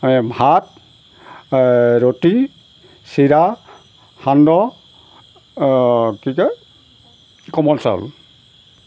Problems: none marked